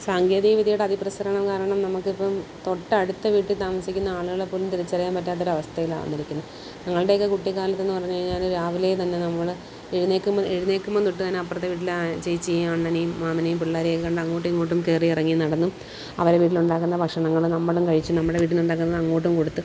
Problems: constant background noise